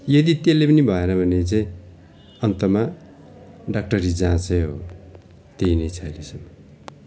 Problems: none marked